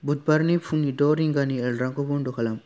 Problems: low volume